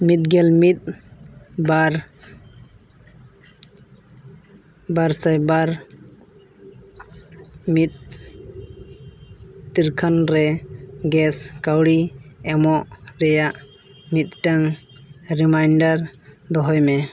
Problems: none marked